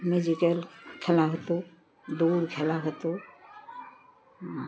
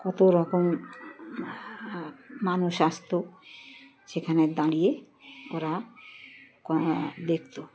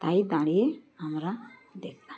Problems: constant background noise, continuous background conversations